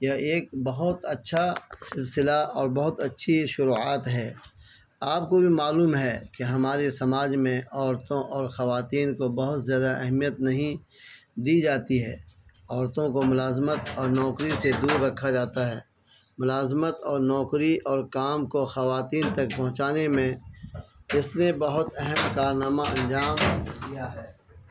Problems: constant background noise